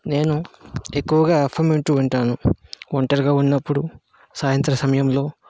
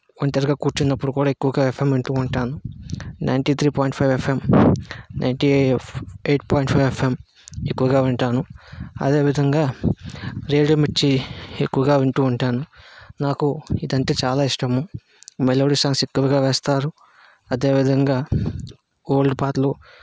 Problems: constant background noise